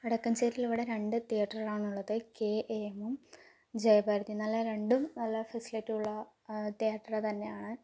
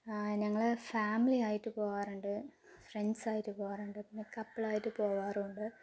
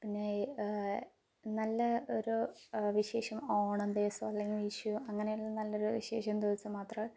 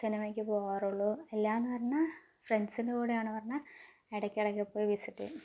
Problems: low volume